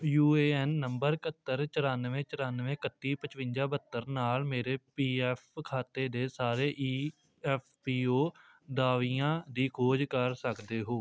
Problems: background sounds at intervals